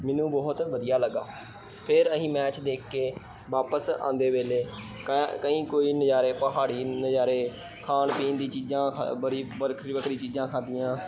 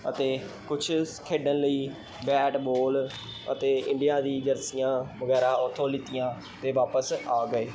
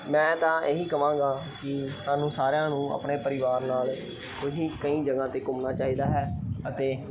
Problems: none marked